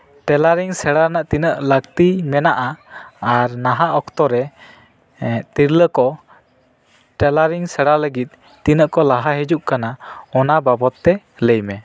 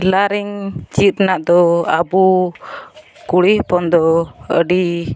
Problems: background sounds at intervals